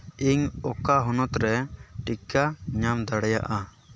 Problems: constant background noise